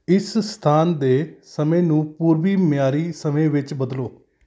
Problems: none marked